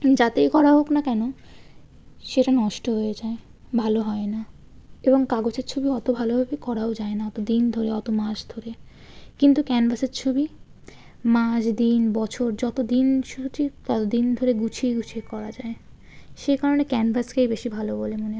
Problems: background sounds at intervals